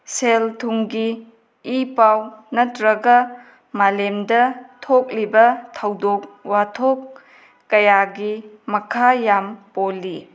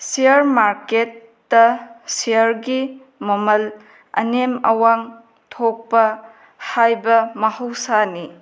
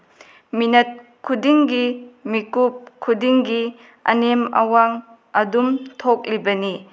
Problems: none marked